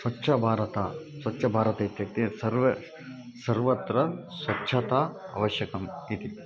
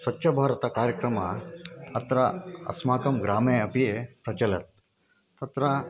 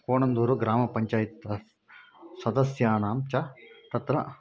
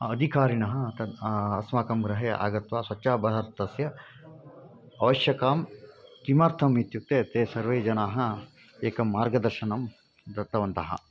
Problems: background sounds at intervals